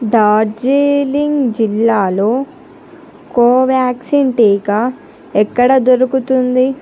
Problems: none marked